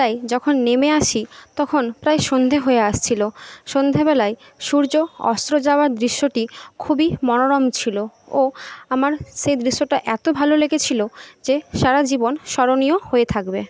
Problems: none marked